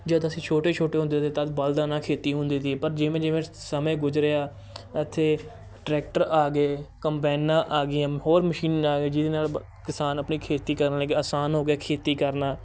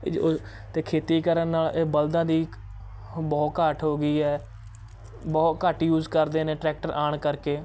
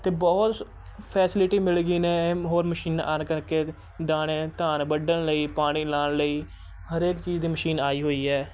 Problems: background sounds at intervals, continuous background conversations